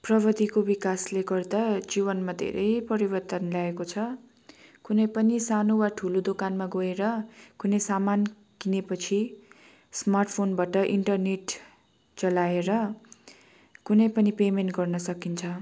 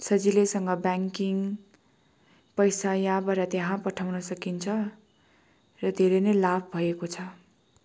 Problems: constant background noise